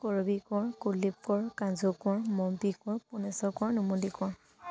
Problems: none marked